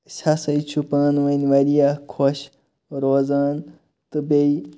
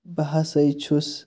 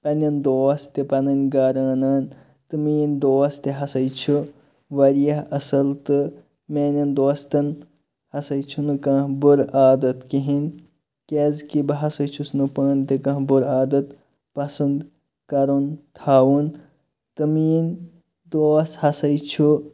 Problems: background sounds at intervals